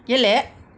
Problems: background sounds at intervals